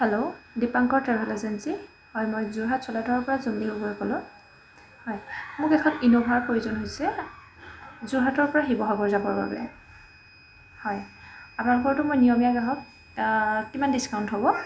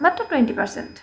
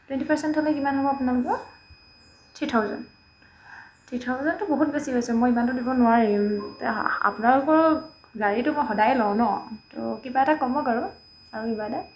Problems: background sounds at intervals, background conversations at intervals